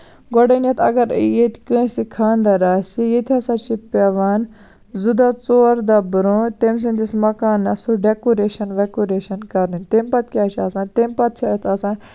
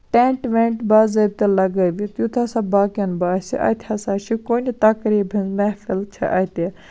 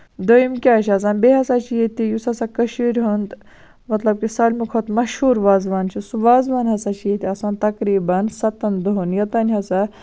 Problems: constant background noise